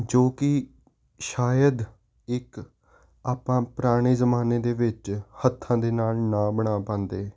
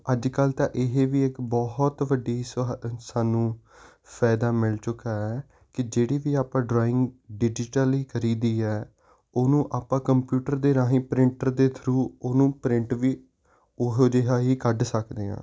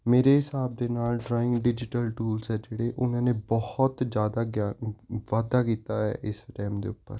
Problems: constant background noise